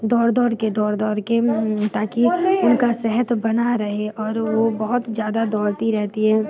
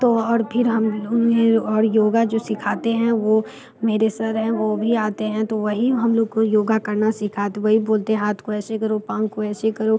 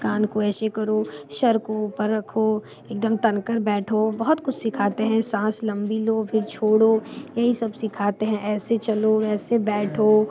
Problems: background sounds at intervals, background conversations at intervals